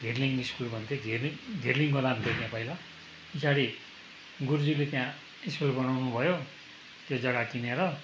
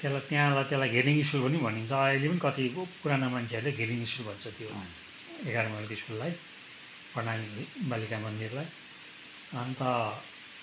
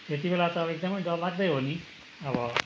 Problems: none marked